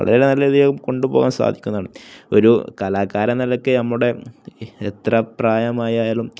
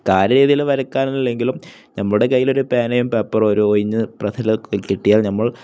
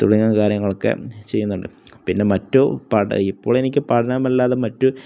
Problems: none marked